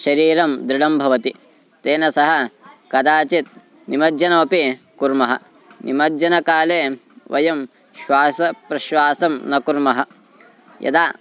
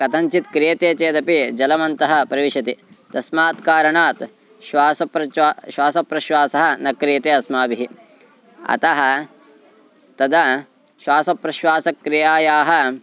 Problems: constant background noise